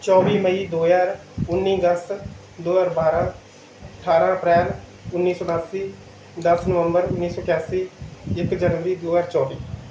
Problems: background sounds at intervals